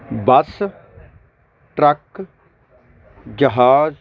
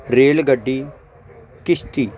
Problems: background sounds at intervals